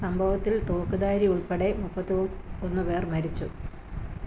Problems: low volume